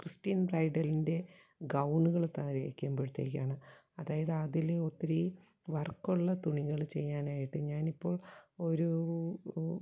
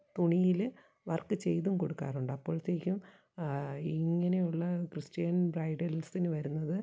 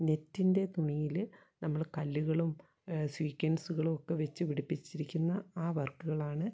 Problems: low volume